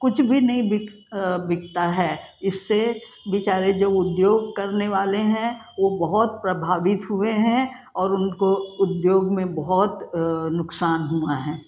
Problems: none marked